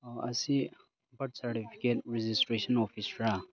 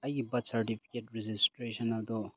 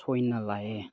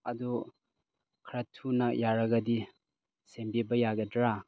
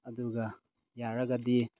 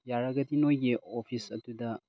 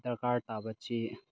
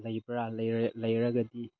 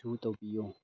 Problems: none marked